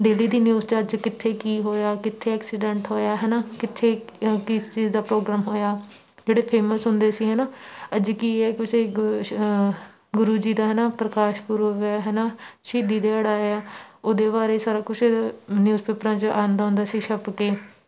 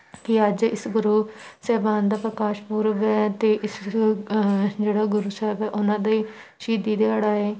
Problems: none marked